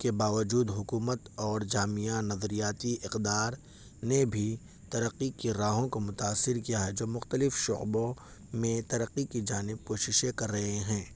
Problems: none marked